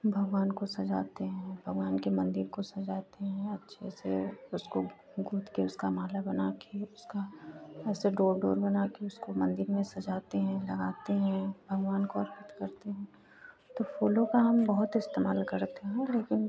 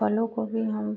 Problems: constant background noise